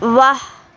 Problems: constant background noise